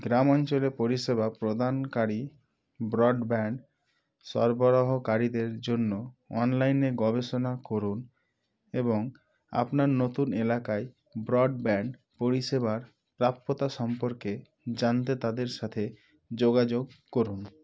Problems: none marked